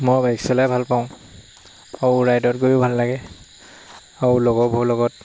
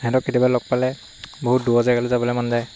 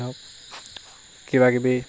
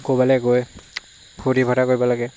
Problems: constant background noise